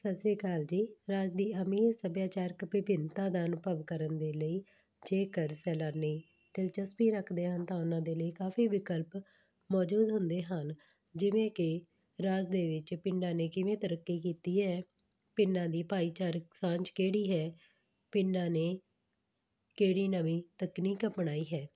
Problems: background sounds at intervals